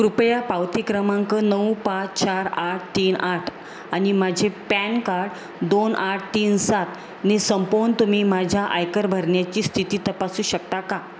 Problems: constant background noise